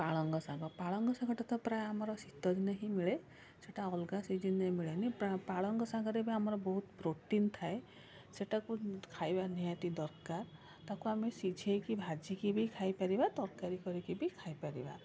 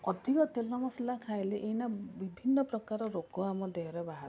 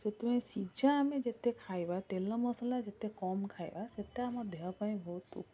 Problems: constant background noise, continuous background conversations